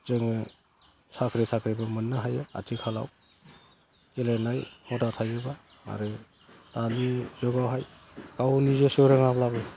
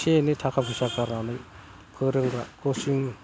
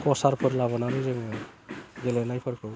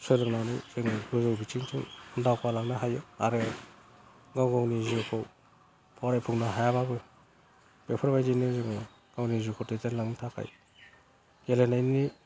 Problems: low volume